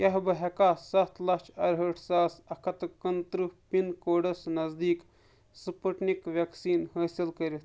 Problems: none marked